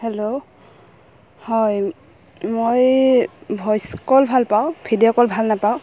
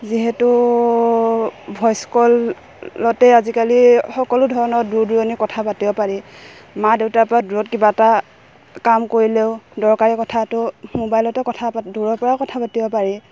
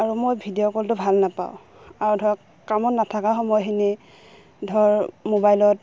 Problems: background sounds at intervals